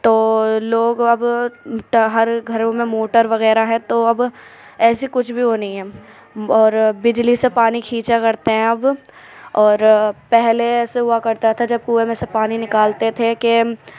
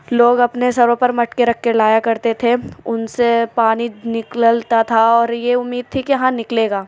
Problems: none marked